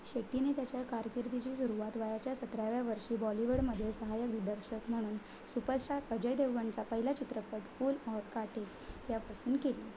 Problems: none marked